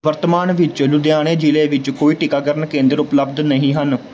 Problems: background sounds at intervals